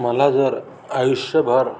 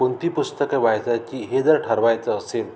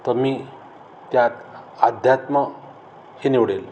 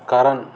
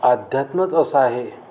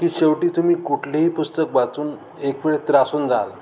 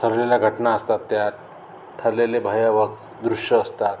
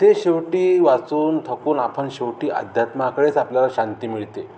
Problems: none marked